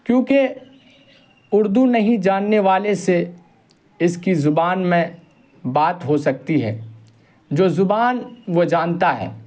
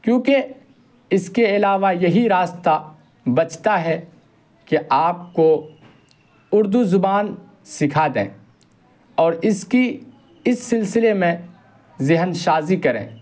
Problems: constant background noise